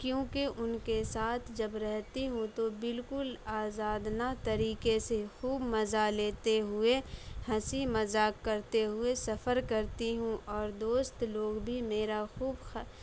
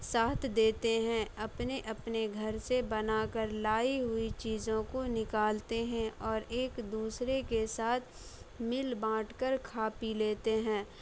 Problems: none marked